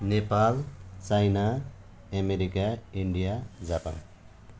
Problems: none marked